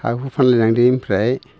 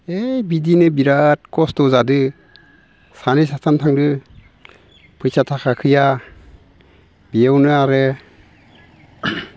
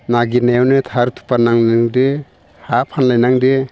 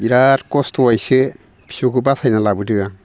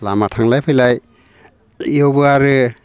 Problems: constant background noise